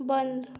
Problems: constant background noise